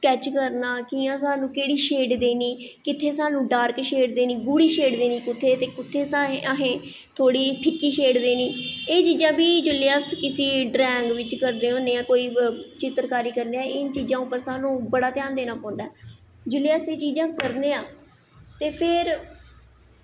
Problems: echo